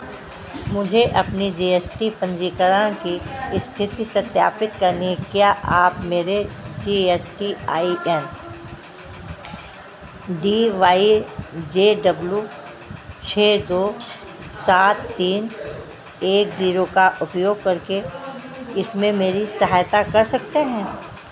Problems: constant background noise